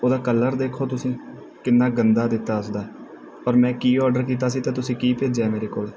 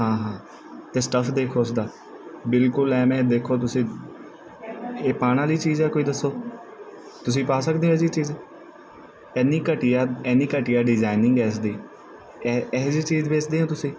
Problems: background sounds at intervals